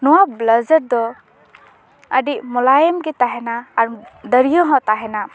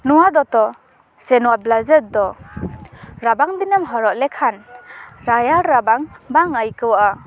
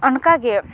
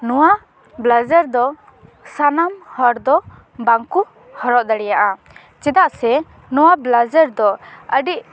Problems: background conversations at intervals